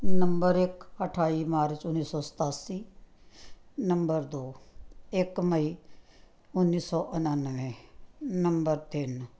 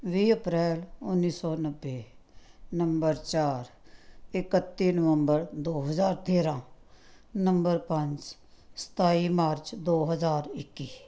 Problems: none marked